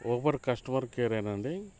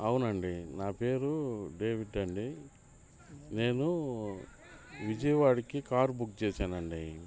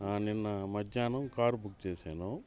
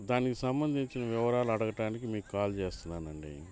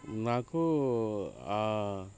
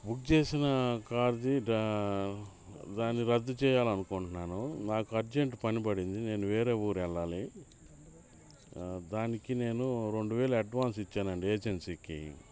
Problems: constant background noise, background conversations at intervals